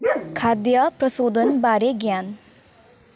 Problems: constant background noise